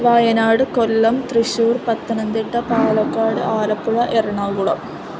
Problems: constant background noise, continuous background conversations